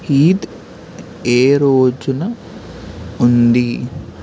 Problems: constant background noise